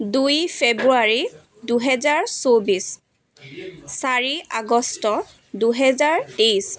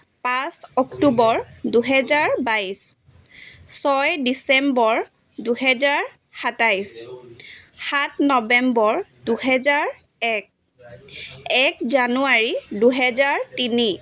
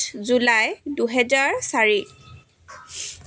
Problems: continuous background conversations